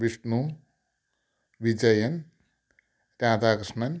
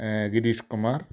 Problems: low volume